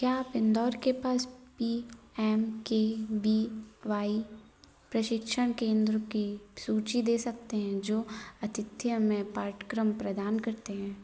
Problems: none marked